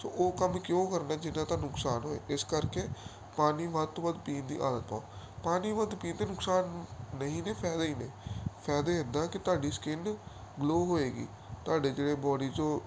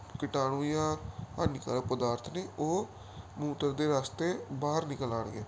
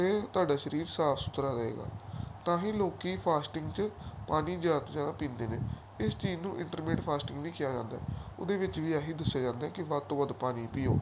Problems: none marked